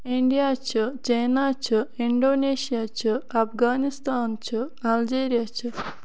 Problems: background sounds at intervals